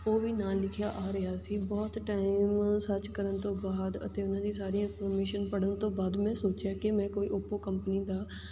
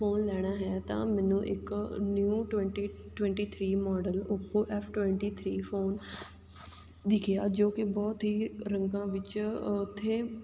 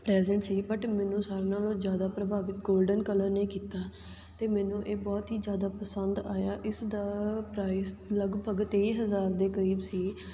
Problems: constant background noise